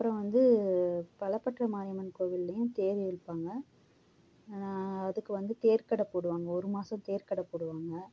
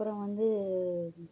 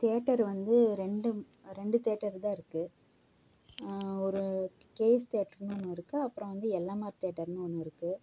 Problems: background sounds at intervals